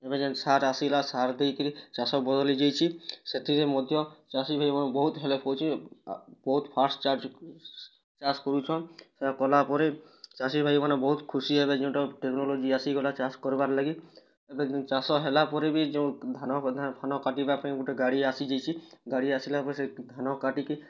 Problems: none marked